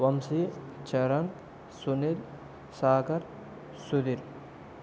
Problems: constant background noise